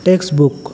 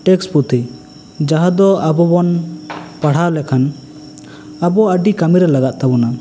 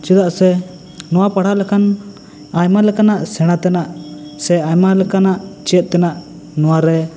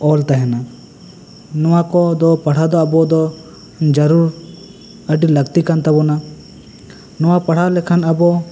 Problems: constant background noise